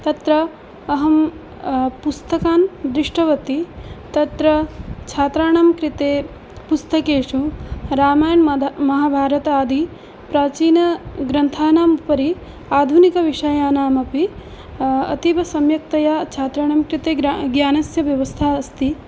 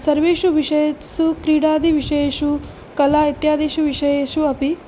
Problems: background conversations at intervals